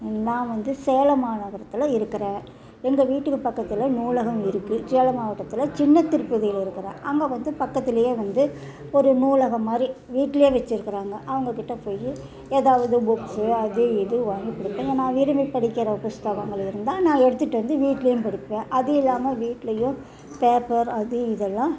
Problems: background conversations at intervals